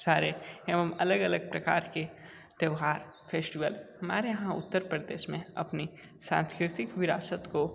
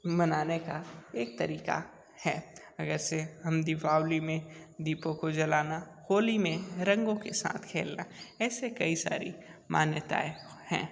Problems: background sounds at intervals